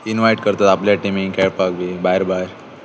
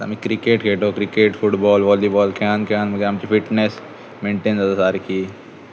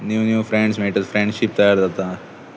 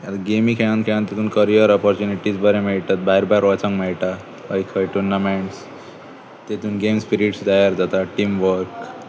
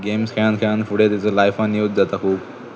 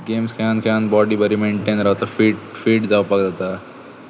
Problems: constant background noise